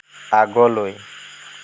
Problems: constant background noise